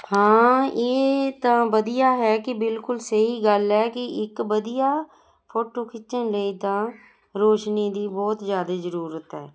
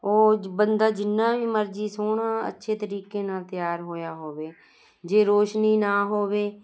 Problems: constant background noise